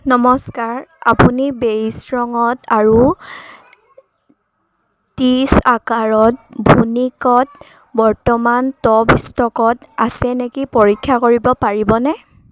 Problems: background sounds at intervals